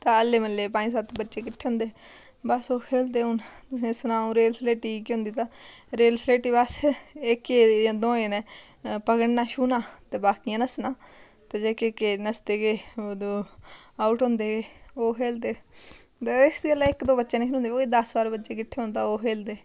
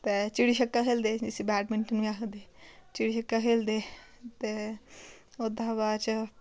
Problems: none marked